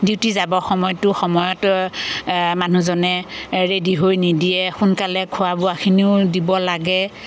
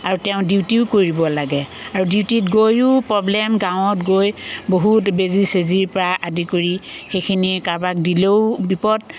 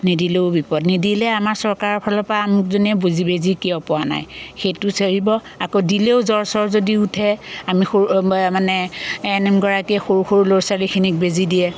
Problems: constant background noise